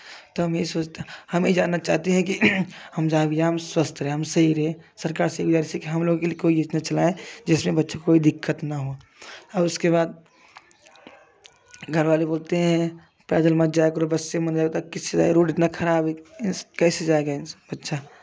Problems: none marked